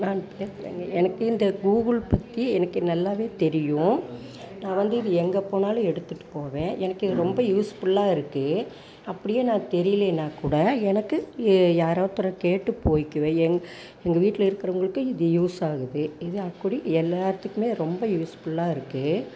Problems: background sounds at intervals, background conversations at intervals